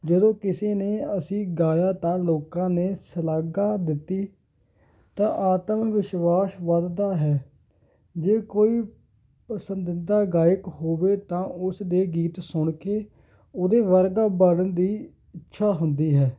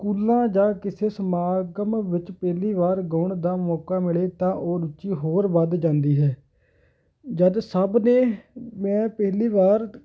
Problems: background sounds at intervals